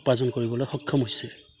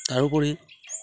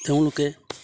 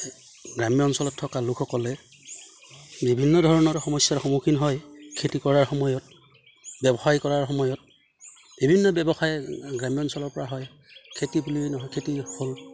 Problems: none marked